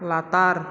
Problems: constant background noise